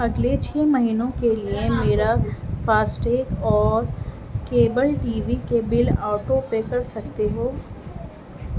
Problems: constant background noise